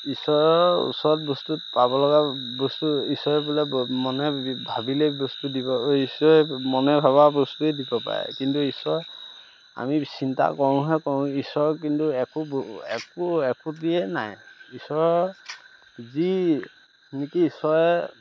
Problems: none marked